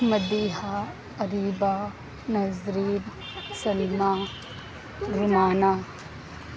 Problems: constant background noise